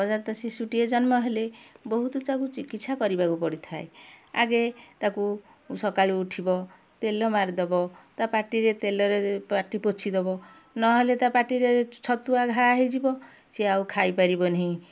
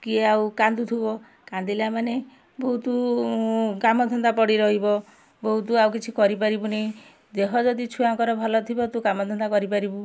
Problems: none marked